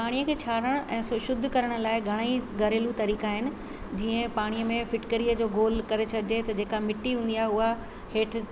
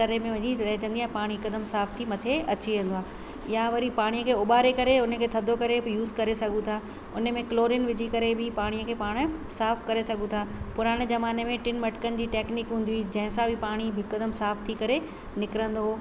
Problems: constant background noise, echo